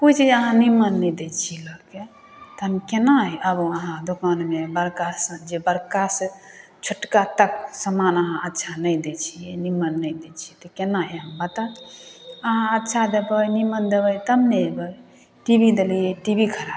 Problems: none marked